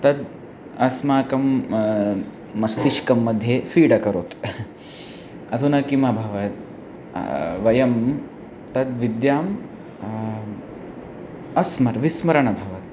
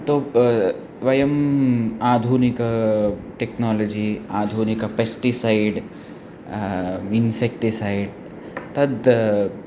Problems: constant background noise